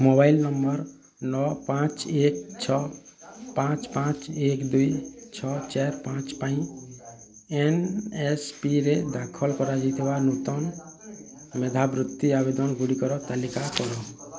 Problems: constant background noise, continuous background conversations